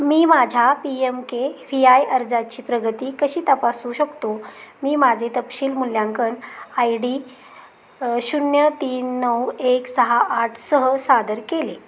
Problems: constant background noise, background conversations at intervals